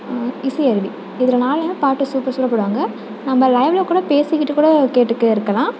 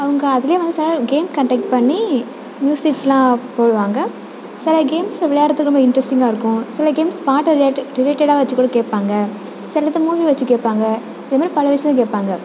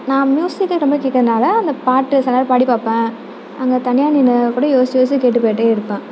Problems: none marked